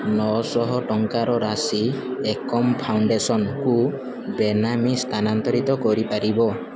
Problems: constant background noise